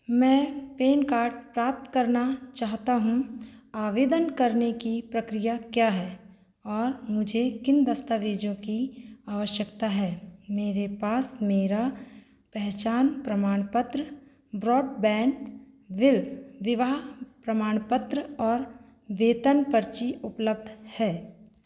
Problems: background conversations at intervals